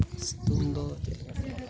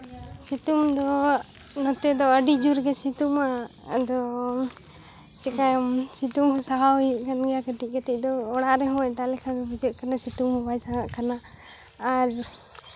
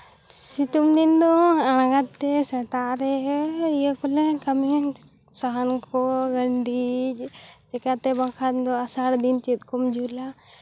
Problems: background conversations at intervals